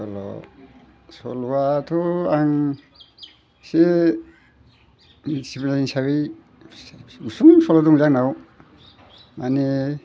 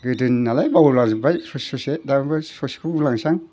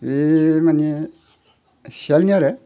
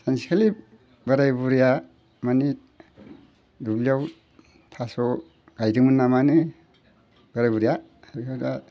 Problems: none marked